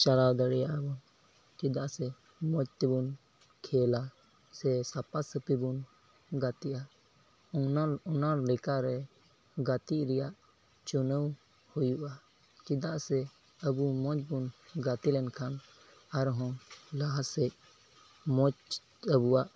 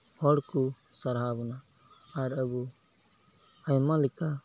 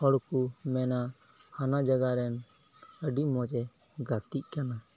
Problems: none marked